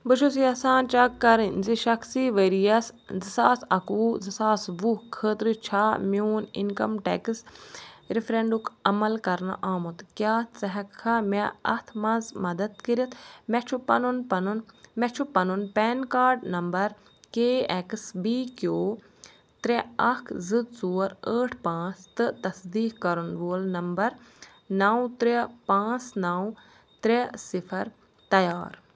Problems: none marked